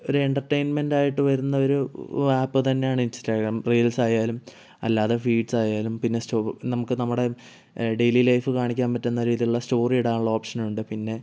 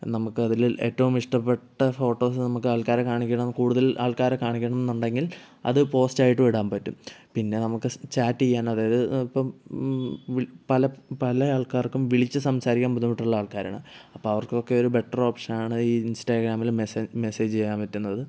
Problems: none marked